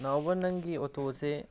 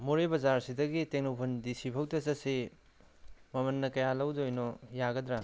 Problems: background sounds at intervals